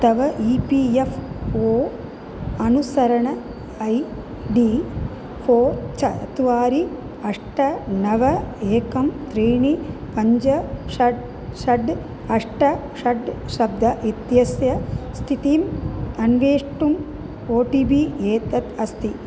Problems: none marked